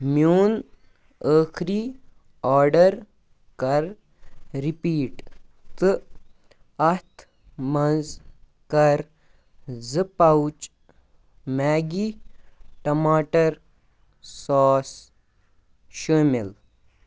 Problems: background sounds at intervals